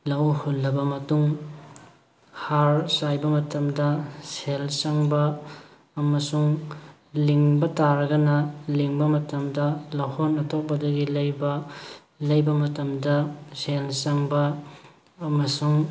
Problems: background sounds at intervals